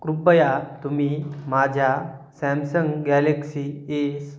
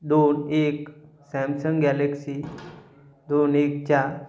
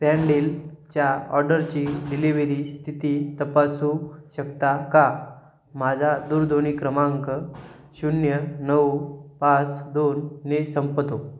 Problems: background sounds at intervals